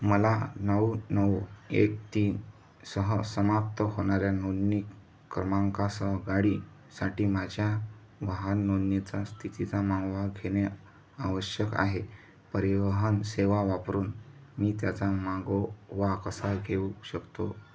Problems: background sounds at intervals